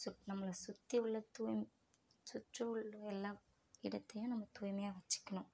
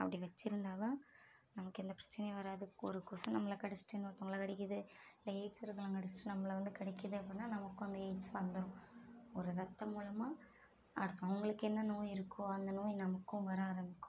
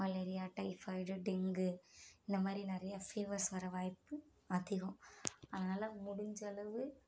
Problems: none marked